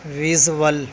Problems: none marked